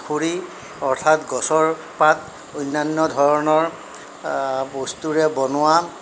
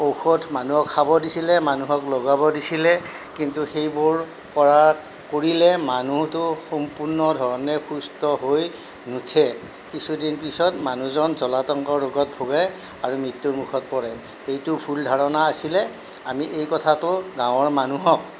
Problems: none marked